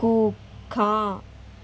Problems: none marked